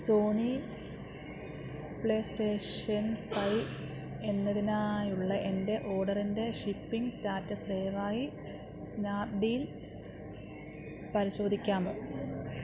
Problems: none marked